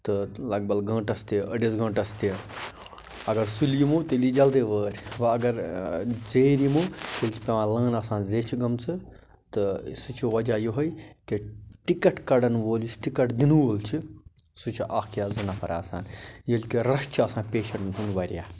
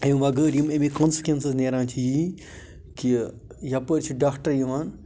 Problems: none marked